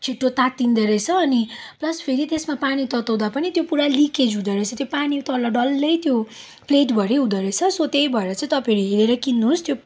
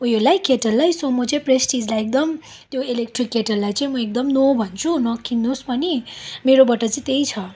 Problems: none marked